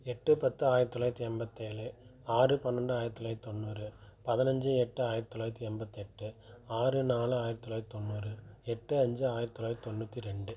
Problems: low volume